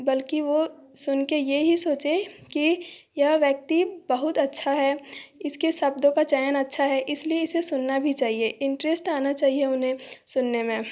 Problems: none marked